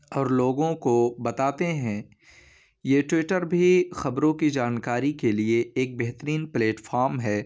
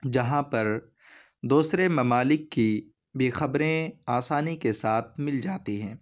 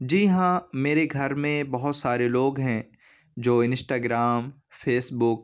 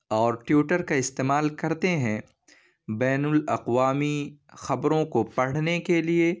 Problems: none marked